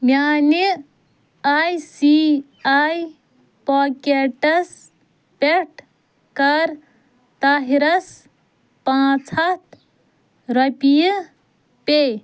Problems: none marked